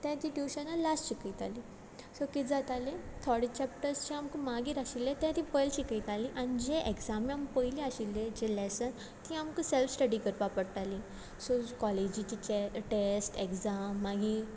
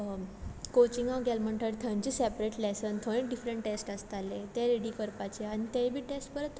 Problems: none marked